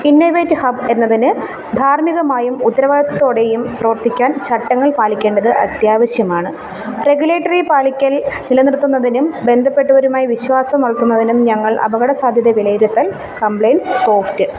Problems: background sounds at intervals